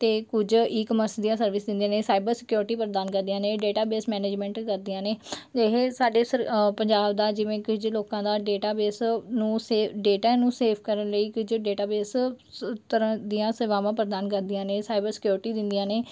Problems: background sounds at intervals